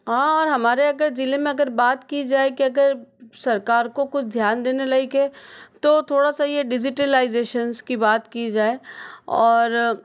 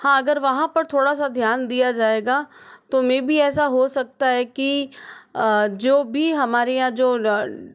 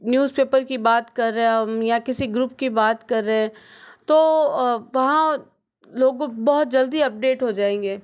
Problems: none marked